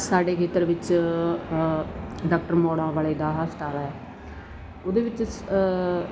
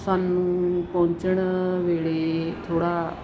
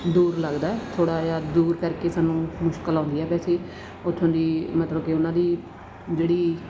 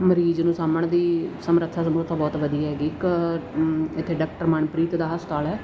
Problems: none marked